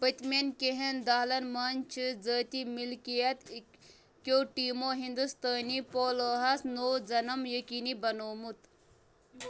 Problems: none marked